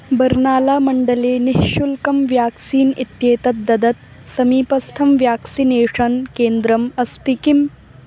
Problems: none marked